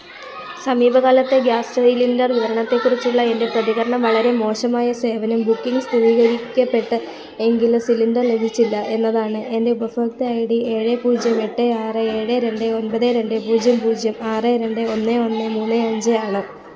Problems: continuous background conversations